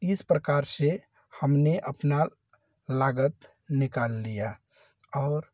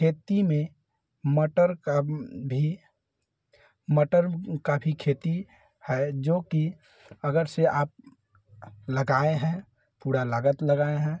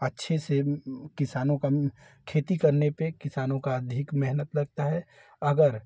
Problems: none marked